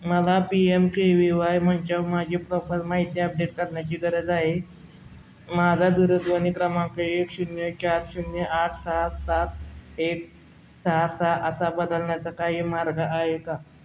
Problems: constant background noise, background conversations at intervals